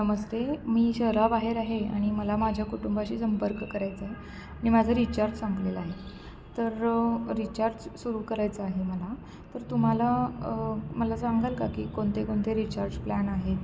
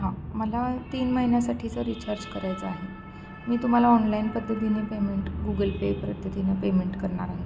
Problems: constant background noise, background conversations at intervals